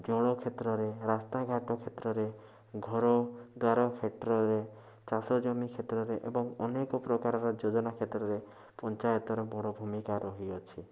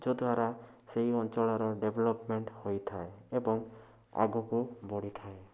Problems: constant background noise